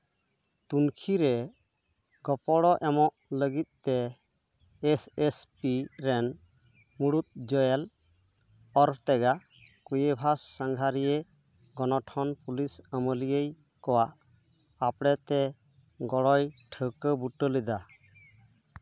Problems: none marked